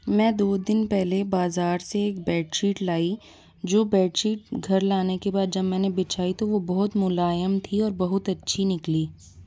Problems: none marked